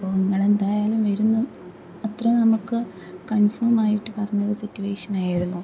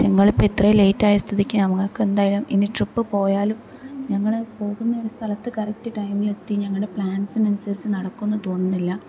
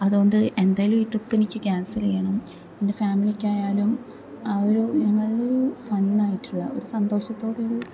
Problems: background sounds at intervals, low volume